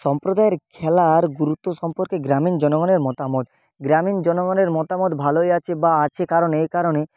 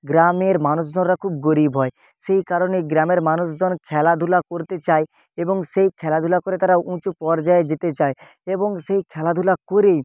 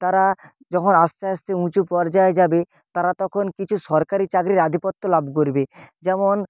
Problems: constant background noise